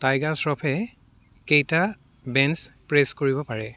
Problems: background sounds at intervals